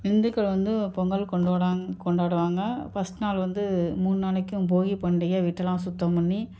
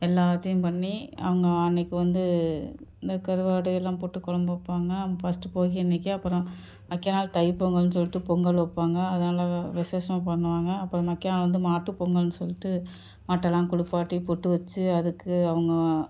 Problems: none marked